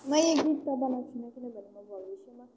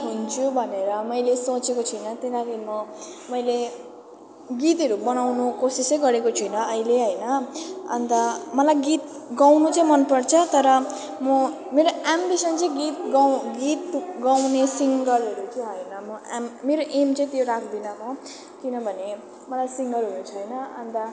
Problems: continuous background conversations, low volume